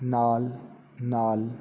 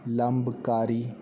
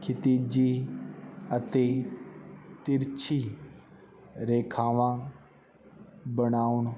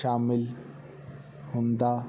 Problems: constant background noise